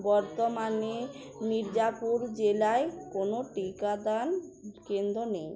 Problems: constant background noise